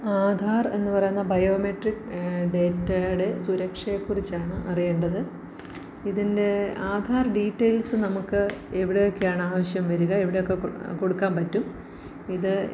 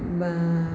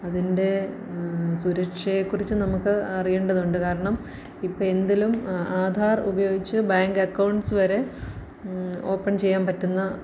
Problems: low volume